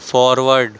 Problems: constant background noise